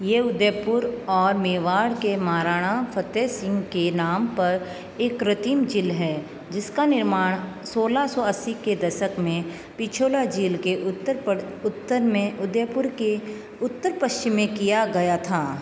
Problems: constant background noise